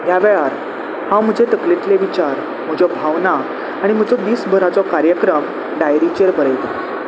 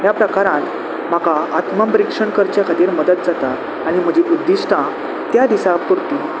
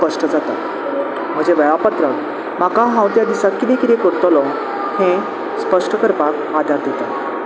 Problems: constant background noise